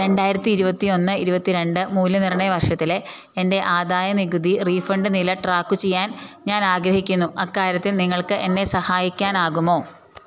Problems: none marked